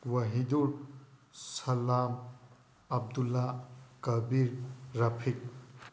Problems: none marked